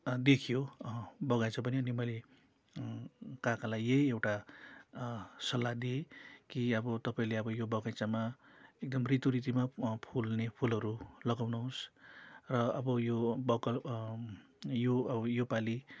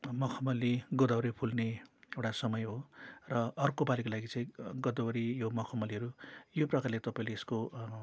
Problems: constant background noise